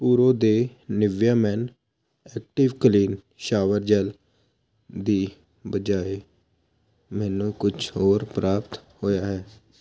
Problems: constant background noise